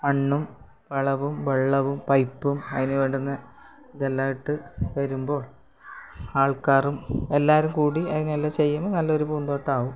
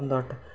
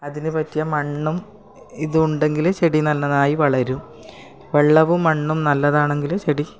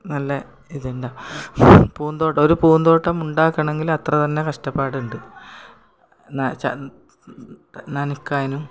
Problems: background sounds at intervals